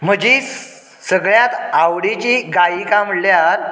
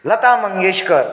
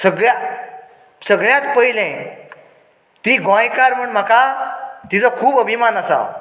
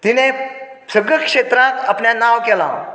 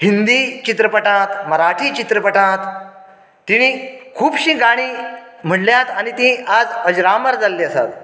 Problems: low volume